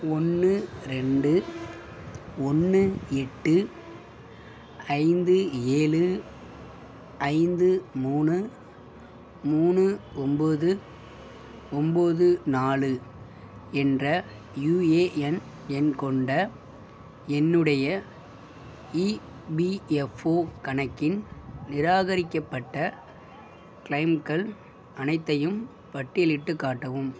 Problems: background sounds at intervals